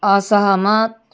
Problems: background sounds at intervals